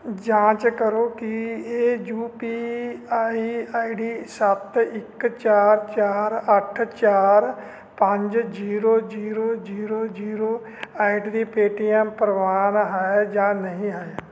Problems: constant background noise